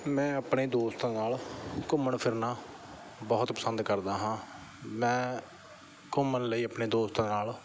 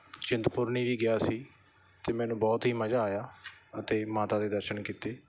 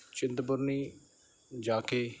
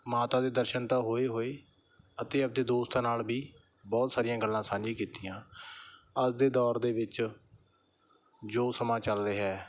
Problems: background sounds at intervals, background conversations at intervals